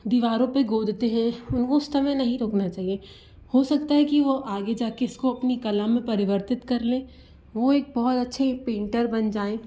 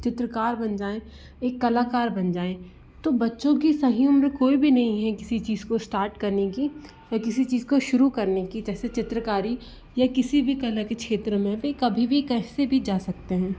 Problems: low volume